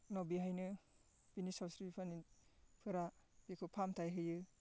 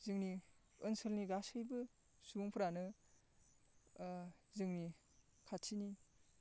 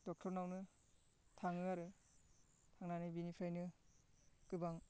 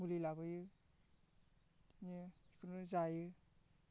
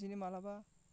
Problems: constant background noise